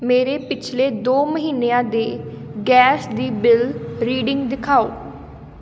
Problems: background sounds at intervals